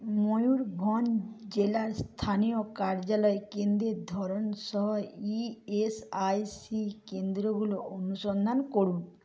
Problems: low volume